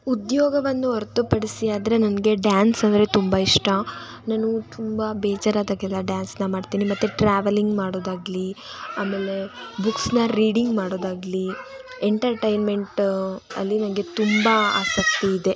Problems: constant background noise